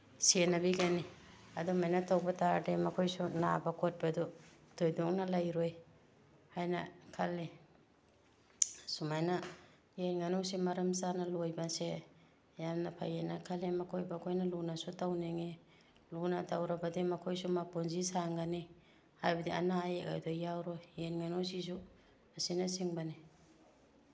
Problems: none marked